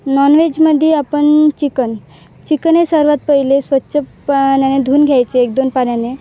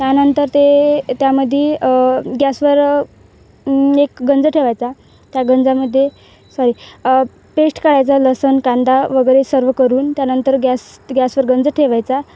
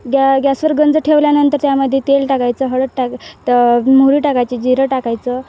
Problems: none marked